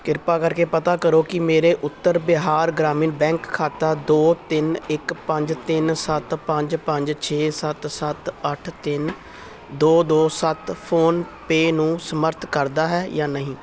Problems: constant background noise